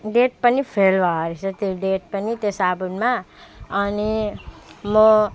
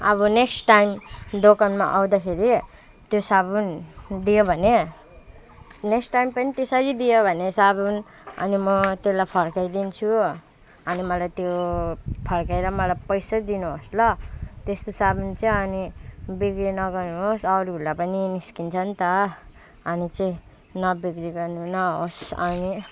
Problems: background sounds at intervals